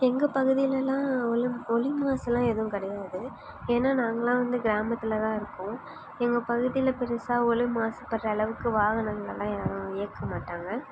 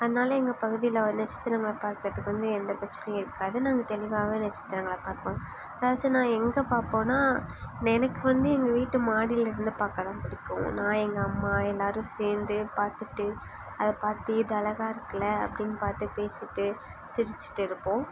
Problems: background sounds at intervals